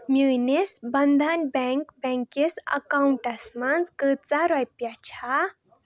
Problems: background sounds at intervals